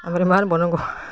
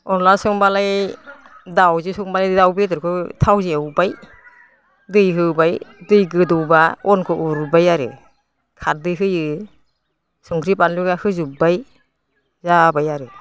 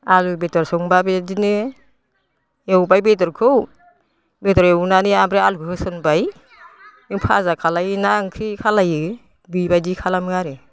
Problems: constant background noise